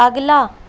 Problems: constant background noise